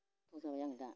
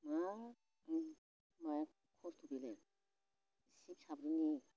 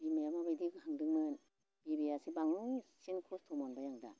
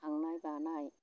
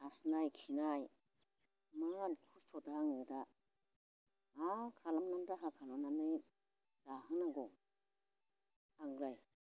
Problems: constant background noise